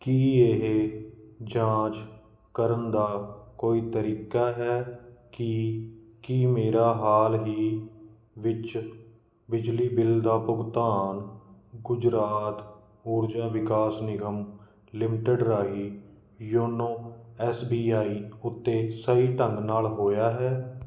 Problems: none marked